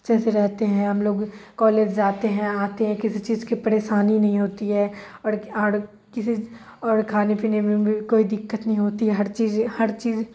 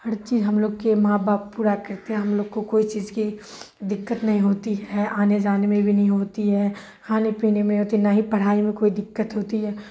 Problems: constant background noise, low volume